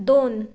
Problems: background sounds at intervals